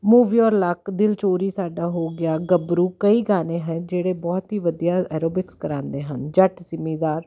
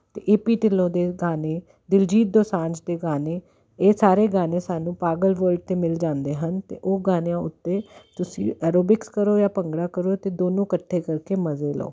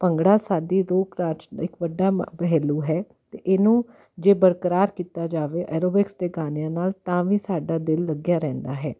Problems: constant background noise